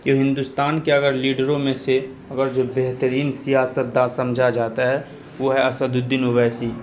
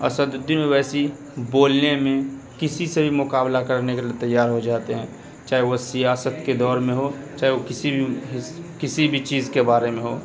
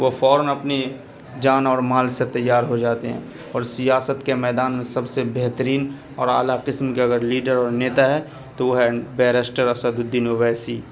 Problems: none marked